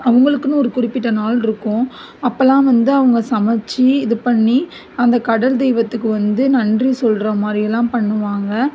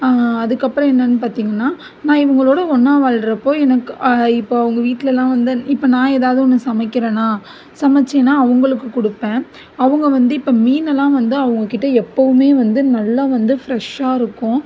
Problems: background sounds at intervals